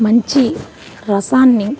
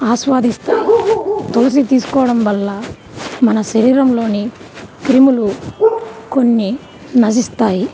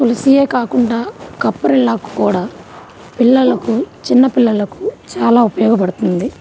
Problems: none marked